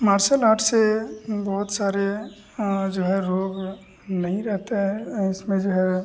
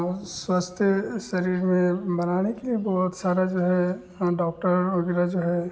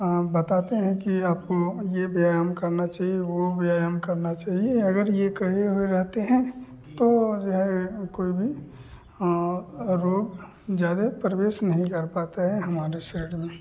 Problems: constant background noise